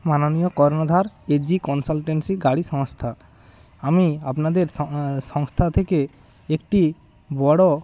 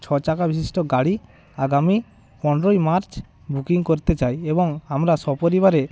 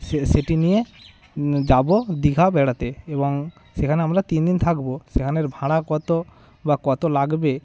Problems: continuous background conversations